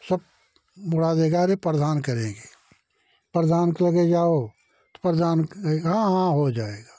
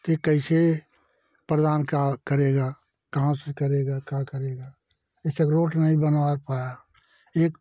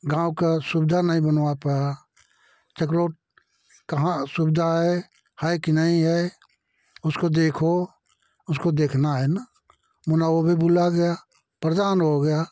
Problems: none marked